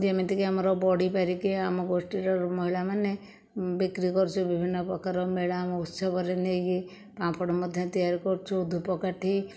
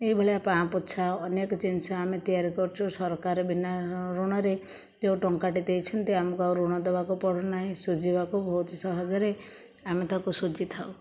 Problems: none marked